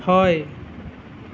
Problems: none marked